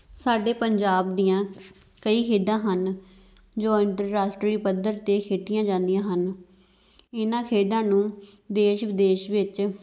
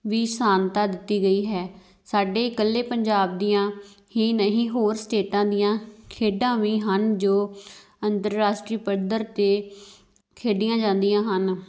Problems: background sounds at intervals